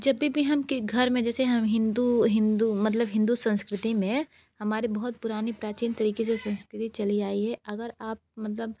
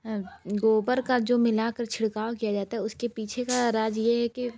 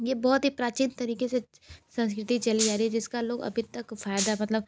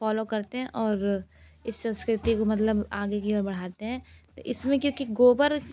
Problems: constant background noise, background conversations at intervals